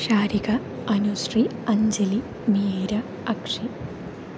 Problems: constant background noise, low volume